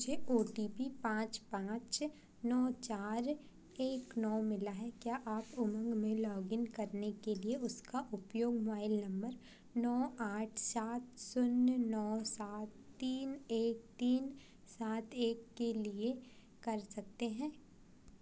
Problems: constant background noise